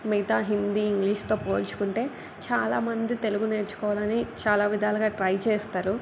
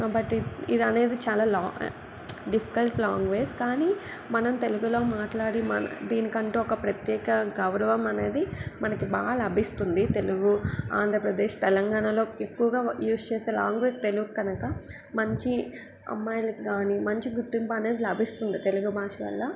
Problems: background sounds at intervals